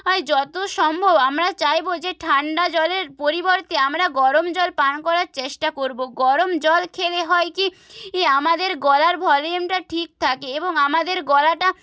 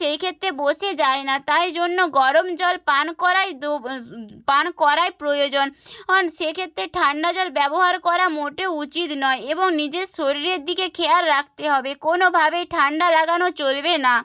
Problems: none marked